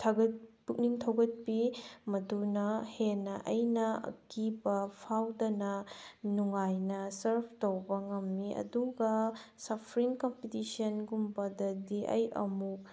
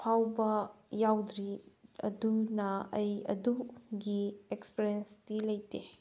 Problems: background sounds at intervals